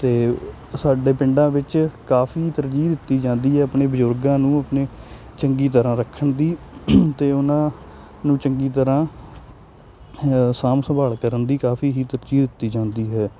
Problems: none marked